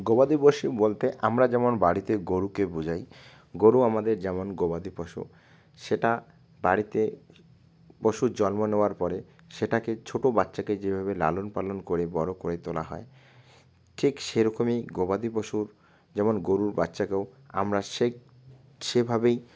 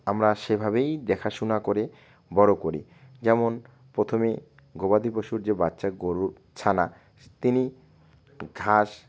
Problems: constant background noise